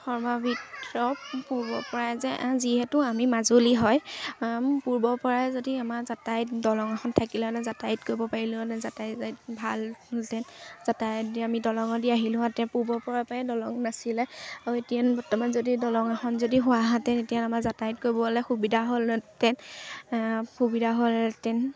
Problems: constant background noise, background conversations at intervals